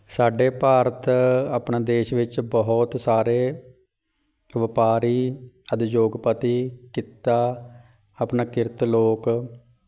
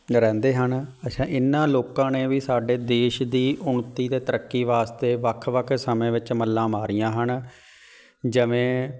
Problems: background sounds at intervals, background conversations at intervals